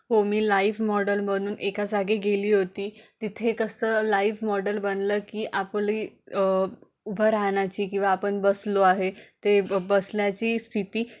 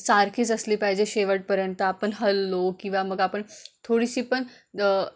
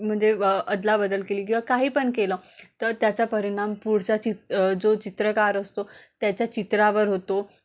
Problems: none marked